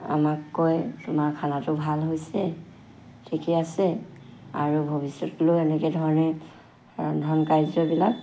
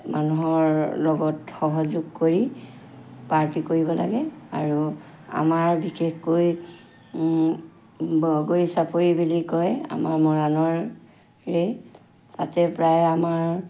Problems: constant background noise